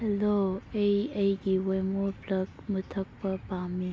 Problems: low volume